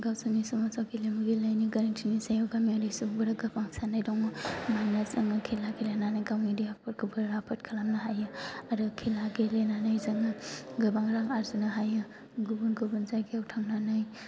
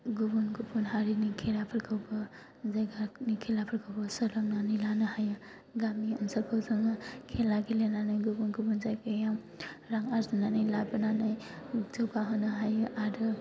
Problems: constant background noise